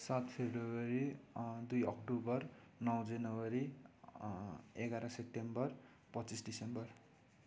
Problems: none marked